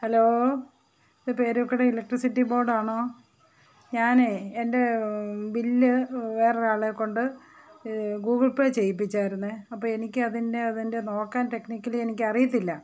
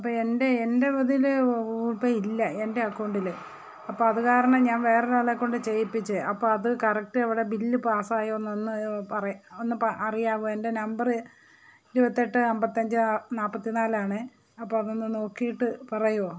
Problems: background sounds at intervals, background conversations at intervals